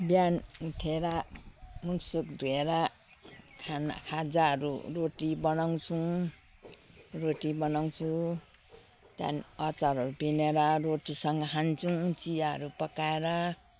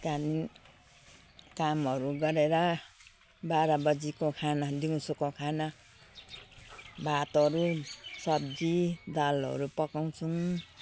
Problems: none marked